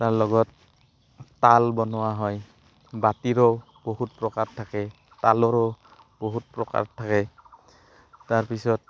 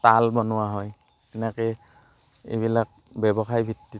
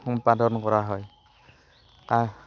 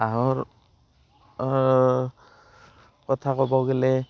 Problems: constant background noise